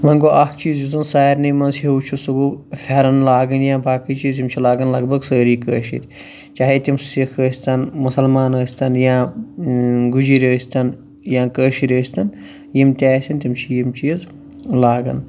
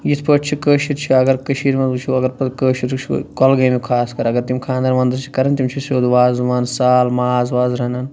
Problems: none marked